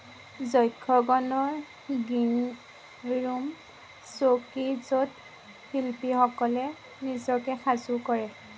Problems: constant background noise